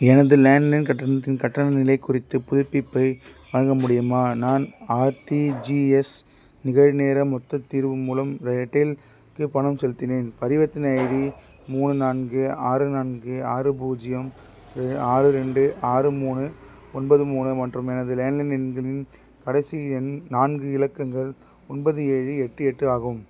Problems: none marked